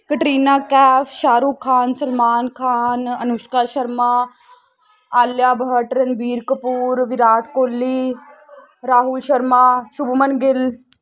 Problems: constant background noise